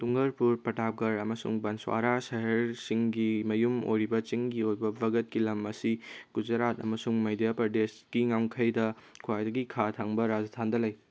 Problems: none marked